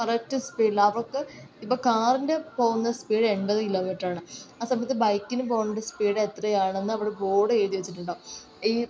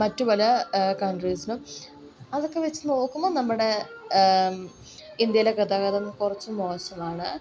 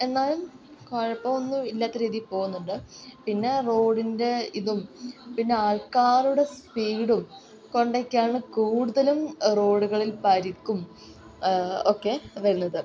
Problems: none marked